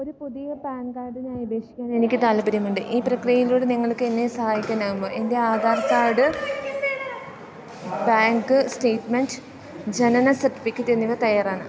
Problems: constant background noise